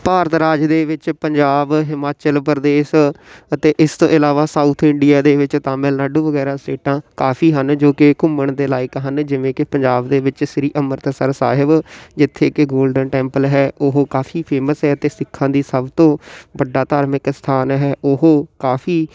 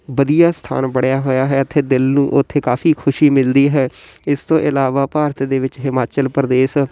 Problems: constant background noise